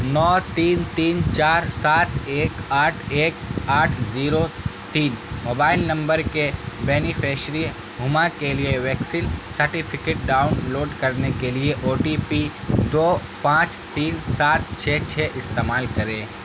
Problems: constant background noise